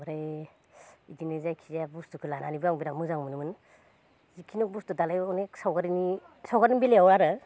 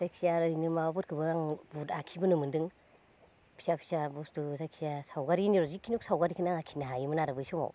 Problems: none marked